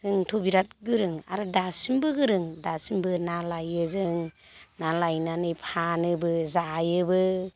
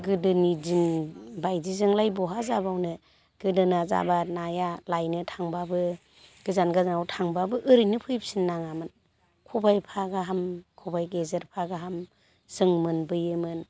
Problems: constant background noise